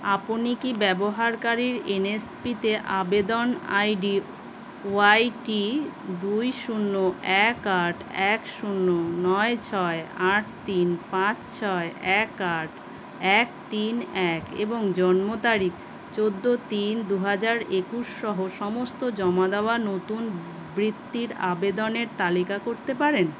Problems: constant background noise